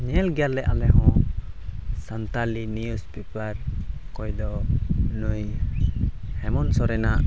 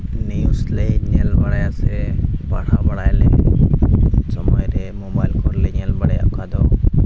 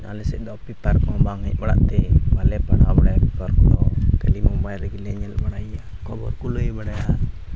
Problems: constant background noise